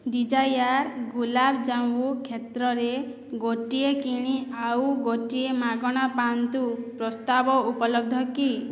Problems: none marked